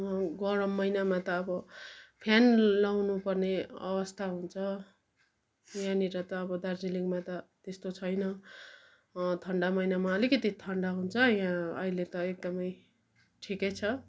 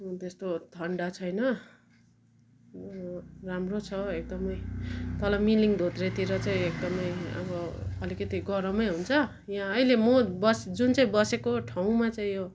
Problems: none marked